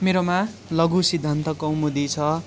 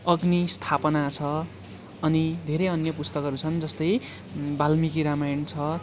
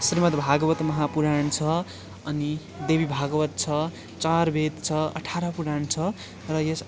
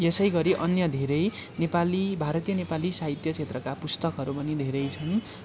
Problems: constant background noise, continuous background conversations